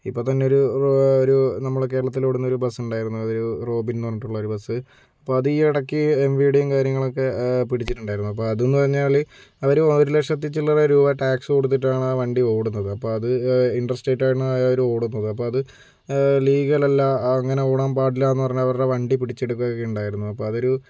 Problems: none marked